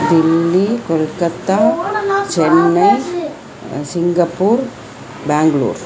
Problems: none marked